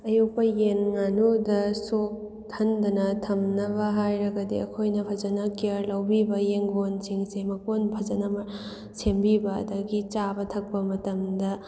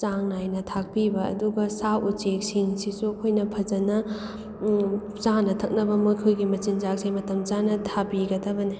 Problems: background sounds at intervals